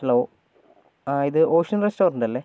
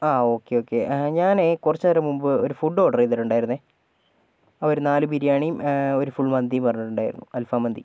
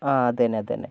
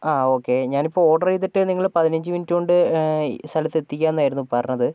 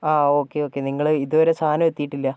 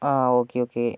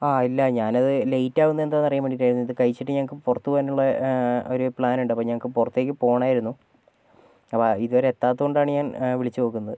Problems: none marked